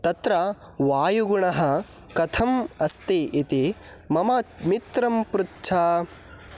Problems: background sounds at intervals